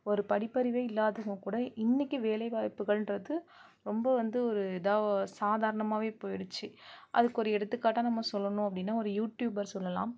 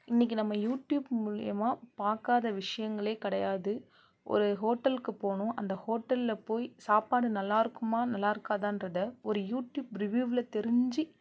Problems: low volume